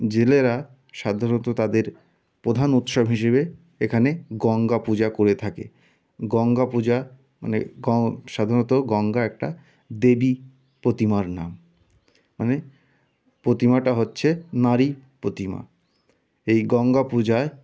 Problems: none marked